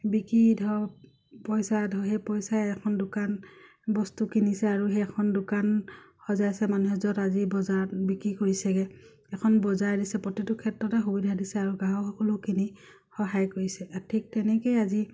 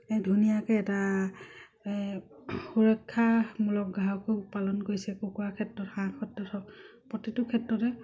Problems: none marked